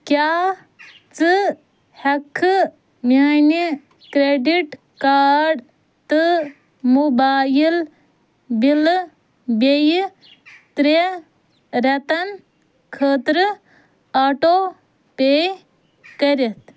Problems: none marked